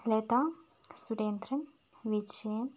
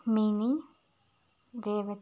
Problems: constant background noise